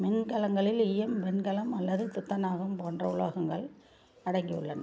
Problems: low volume